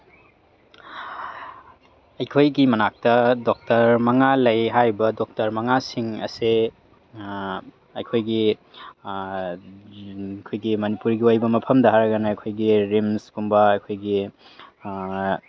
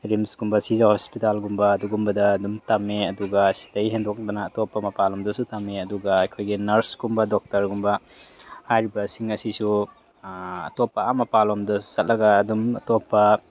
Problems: background sounds at intervals